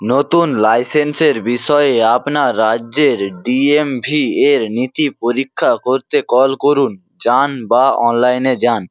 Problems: constant background noise